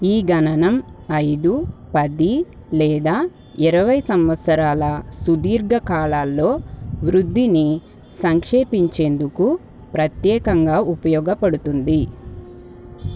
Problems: background sounds at intervals